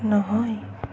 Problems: constant background noise